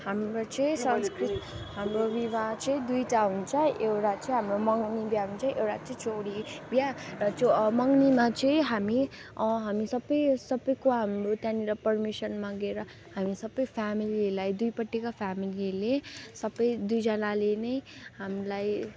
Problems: constant background noise, continuous background conversations